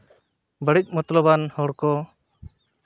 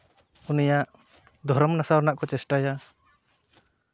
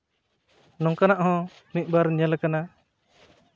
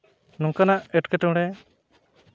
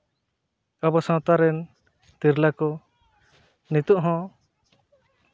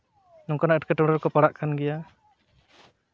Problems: none marked